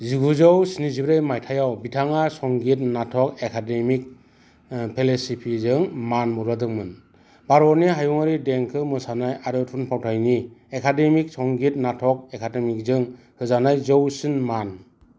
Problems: constant background noise